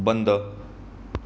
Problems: constant background noise